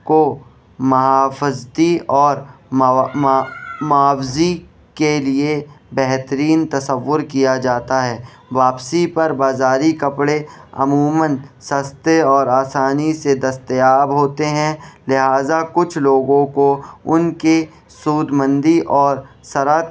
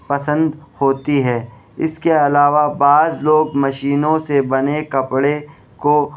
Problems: background sounds at intervals, background conversations at intervals